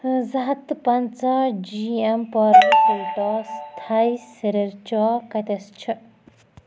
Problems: constant background noise